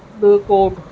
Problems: constant background noise